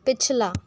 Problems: background sounds at intervals